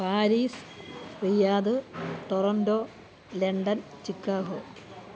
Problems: constant background noise